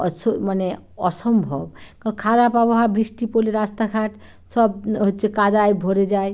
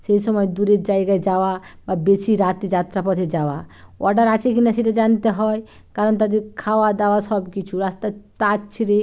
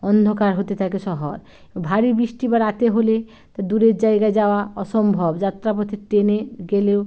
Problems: none marked